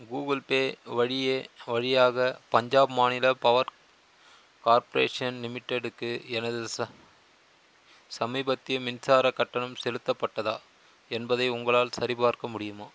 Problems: constant background noise